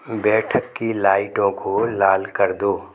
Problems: background sounds at intervals, echo